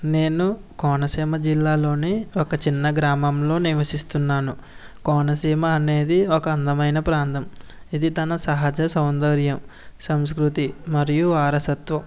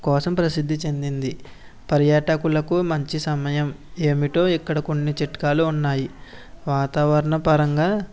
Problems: none marked